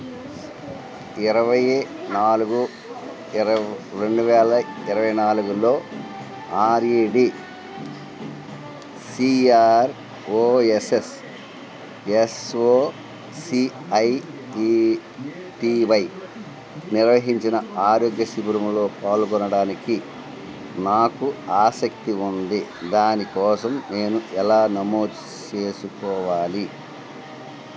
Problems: constant background noise